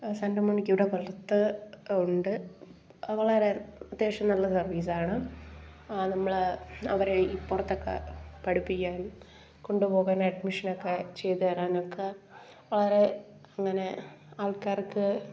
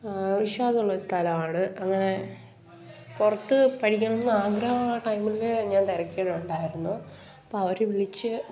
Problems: background sounds at intervals